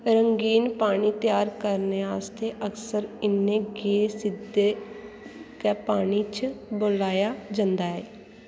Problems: constant background noise